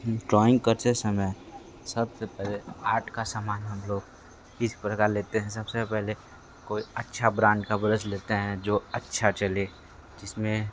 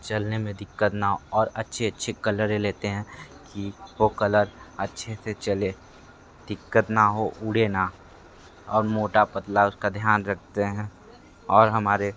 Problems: constant background noise